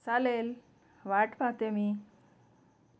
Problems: none marked